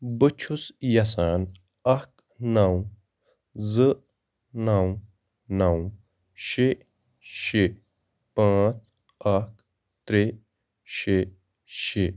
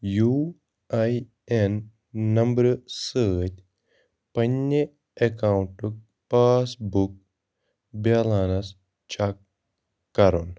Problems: none marked